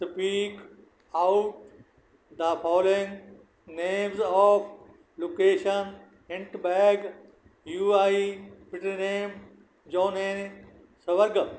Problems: none marked